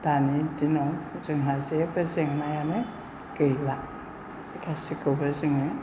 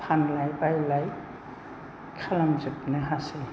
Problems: low volume